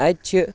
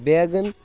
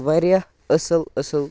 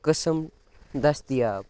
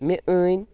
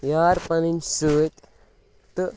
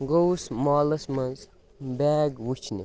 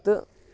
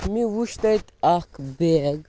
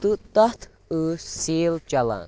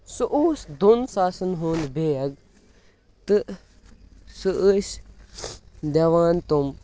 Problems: background sounds at intervals